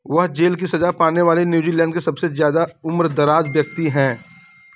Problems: background sounds at intervals